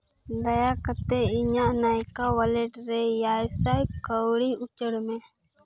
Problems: constant background noise